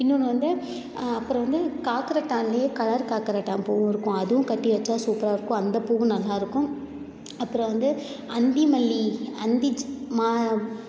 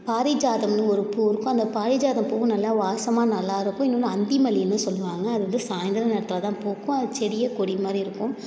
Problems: none marked